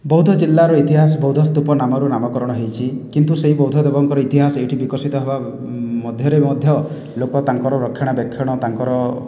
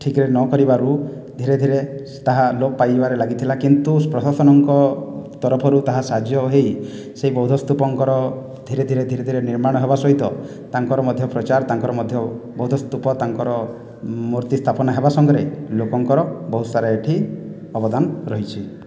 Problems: none marked